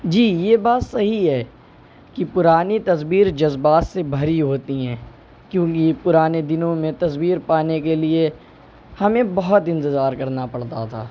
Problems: none marked